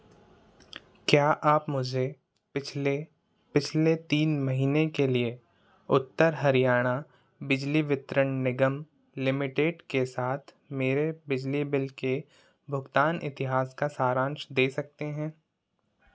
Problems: none marked